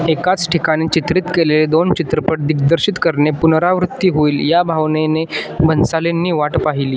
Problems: none marked